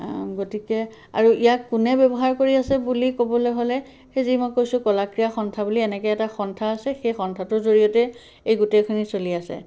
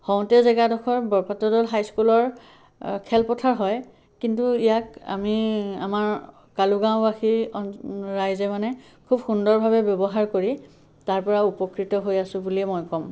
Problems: none marked